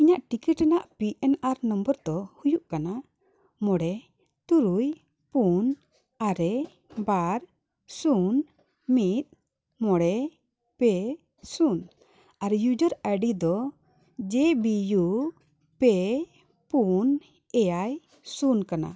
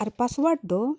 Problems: none marked